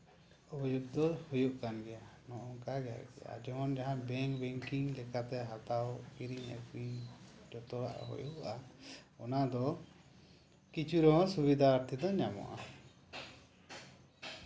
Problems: low volume